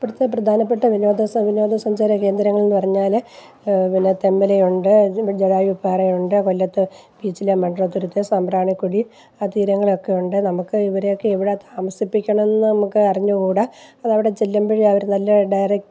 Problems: none marked